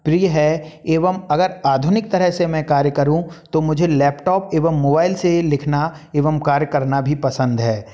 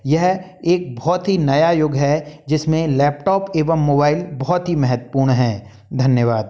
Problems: none marked